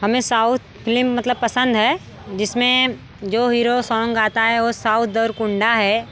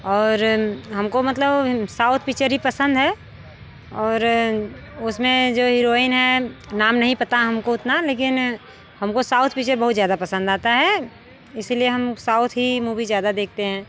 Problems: background sounds at intervals